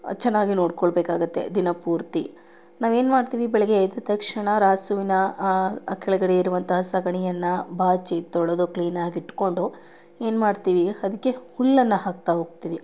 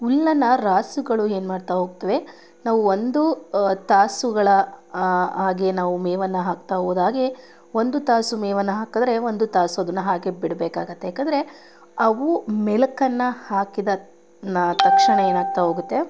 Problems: none marked